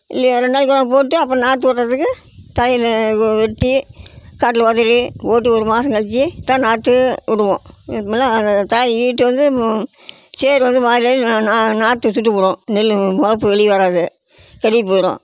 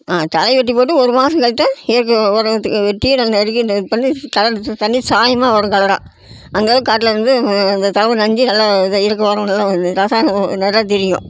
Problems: constant background noise